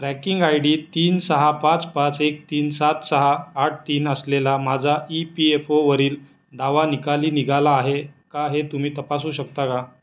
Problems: none marked